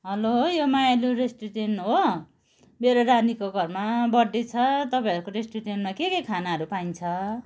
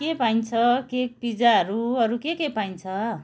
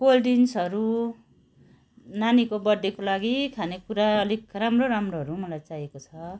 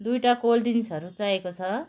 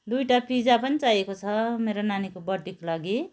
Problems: background sounds at intervals, continuous background conversations